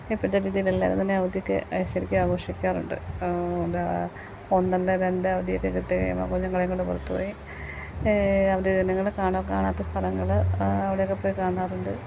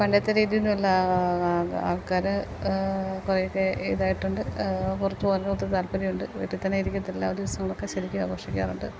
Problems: none marked